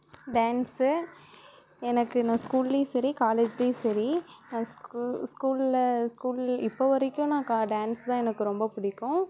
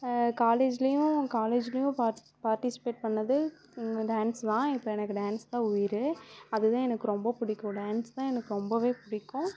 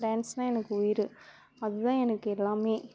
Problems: none marked